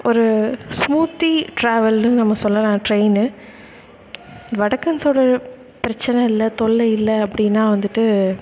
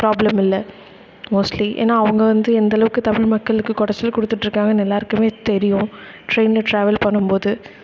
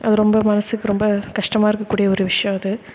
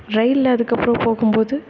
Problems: background sounds at intervals